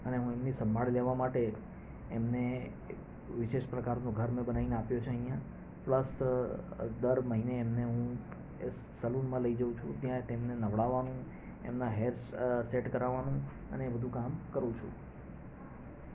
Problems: none marked